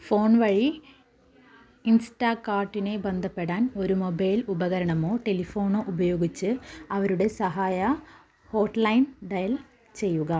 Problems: low volume